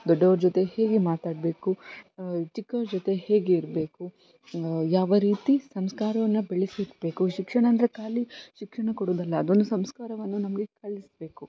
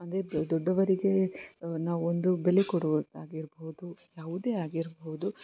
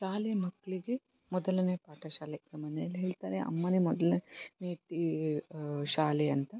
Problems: constant background noise